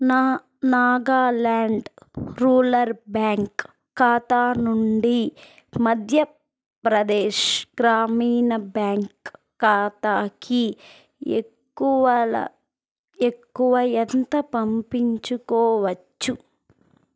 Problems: none marked